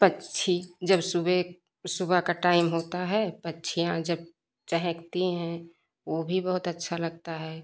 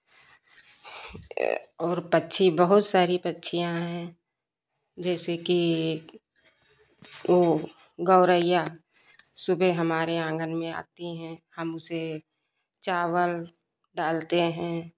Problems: constant background noise